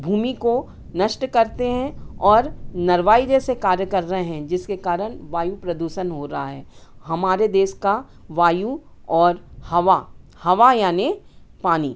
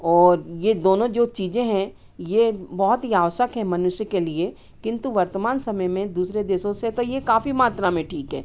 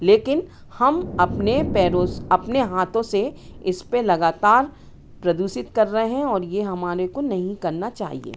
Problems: constant background noise, background conversations at intervals